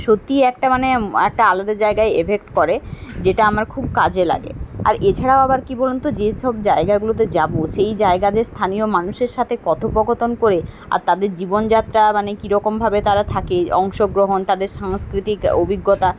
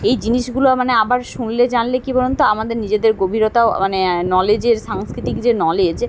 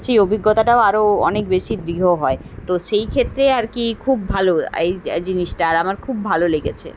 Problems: background sounds at intervals